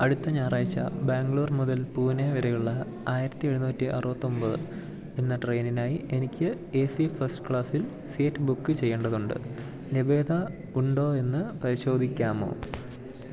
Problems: none marked